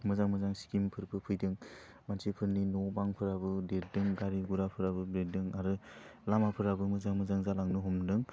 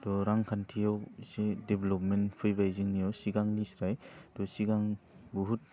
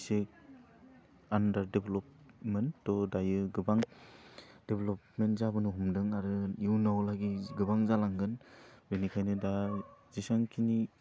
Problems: constant background noise